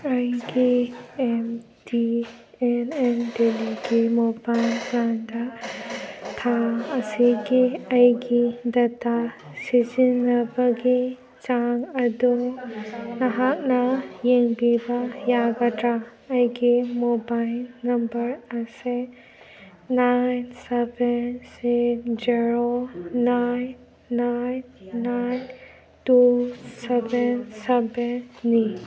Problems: background sounds at intervals, background conversations at intervals